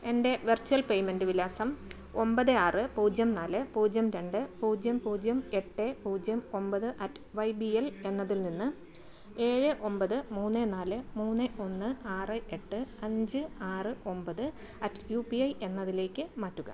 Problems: low volume